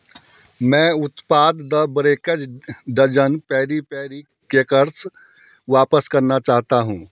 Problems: background sounds at intervals